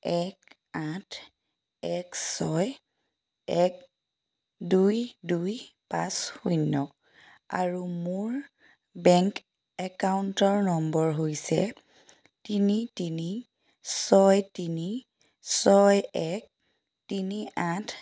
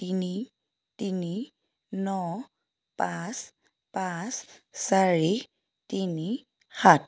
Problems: none marked